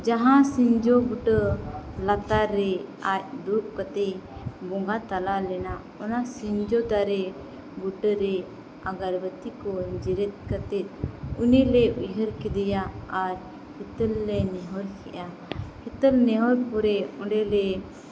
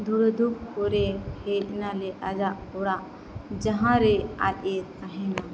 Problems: background sounds at intervals